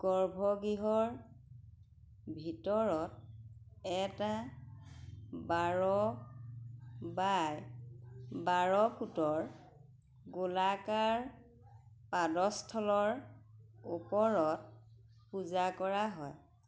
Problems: background sounds at intervals